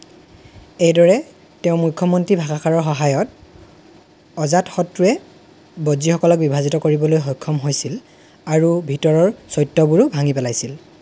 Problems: none marked